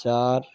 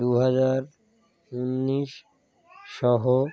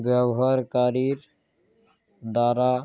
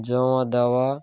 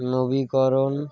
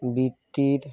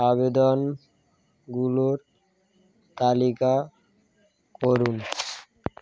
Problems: none marked